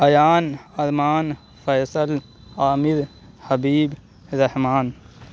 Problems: constant background noise